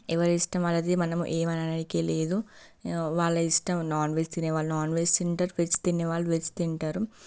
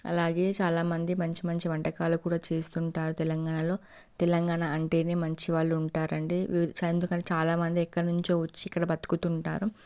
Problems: none marked